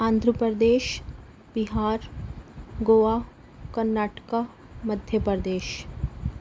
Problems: background sounds at intervals